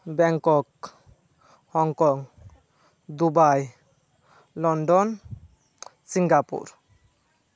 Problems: background conversations at intervals